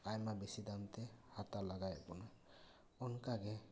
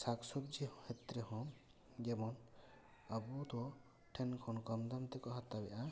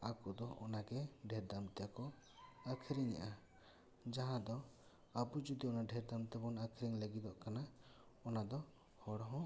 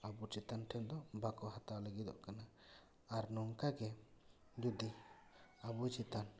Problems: none marked